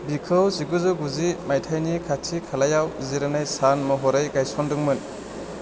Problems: constant background noise